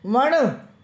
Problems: constant background noise, echo